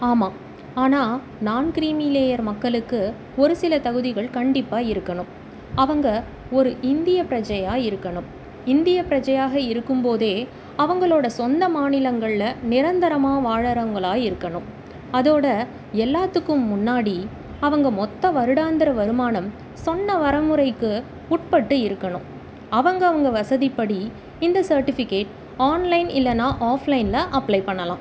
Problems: constant background noise